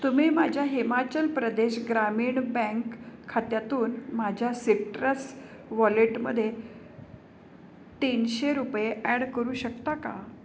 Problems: none marked